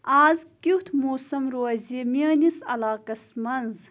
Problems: constant background noise